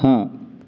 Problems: constant background noise